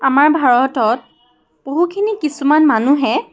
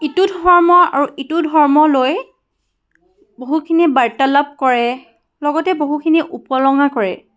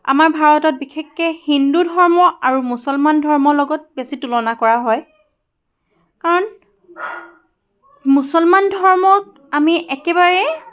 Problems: constant background noise, continuous background conversations